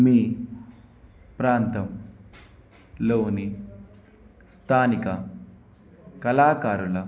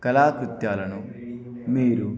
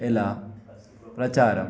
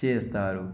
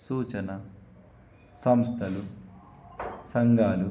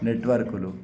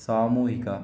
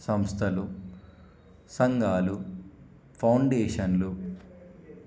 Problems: none marked